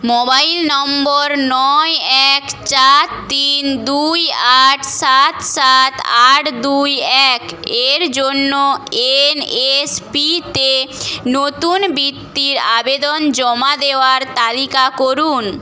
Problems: none marked